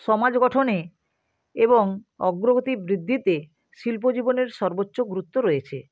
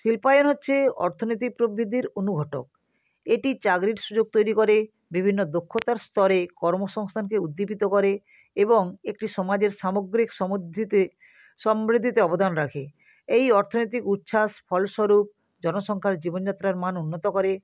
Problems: constant background noise